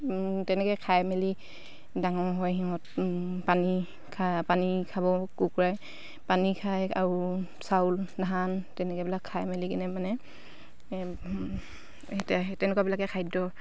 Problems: none marked